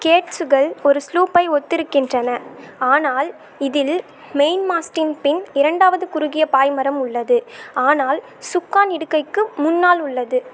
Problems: none marked